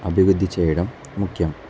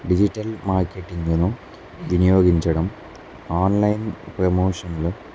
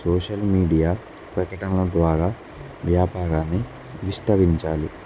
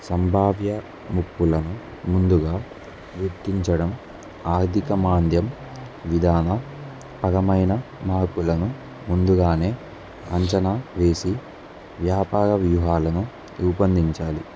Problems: none marked